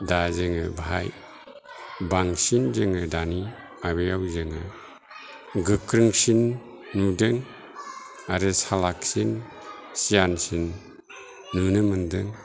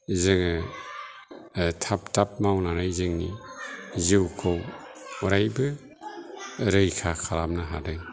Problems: low volume